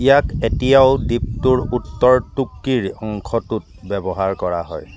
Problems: none marked